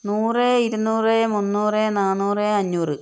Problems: constant background noise